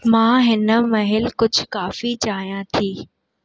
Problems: none marked